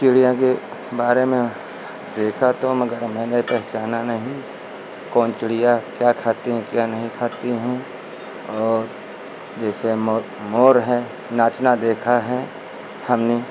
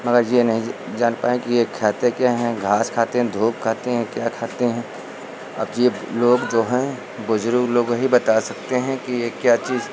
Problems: none marked